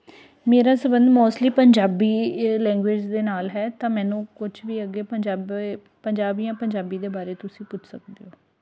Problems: background sounds at intervals